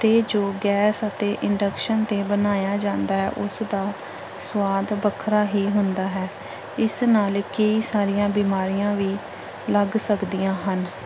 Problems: background sounds at intervals